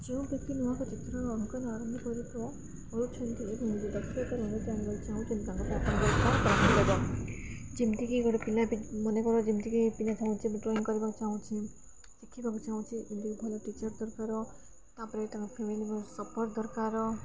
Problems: constant background noise, continuous background conversations